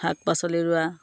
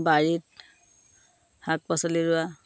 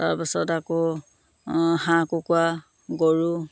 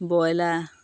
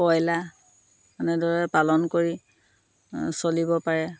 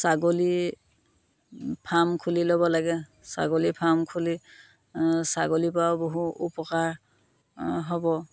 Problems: constant background noise